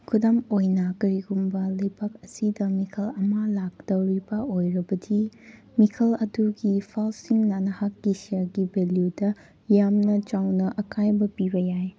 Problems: background sounds at intervals